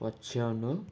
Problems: background sounds at intervals